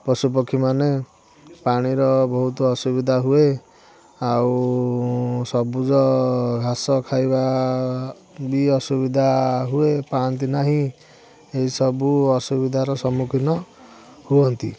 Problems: background sounds at intervals, continuous background conversations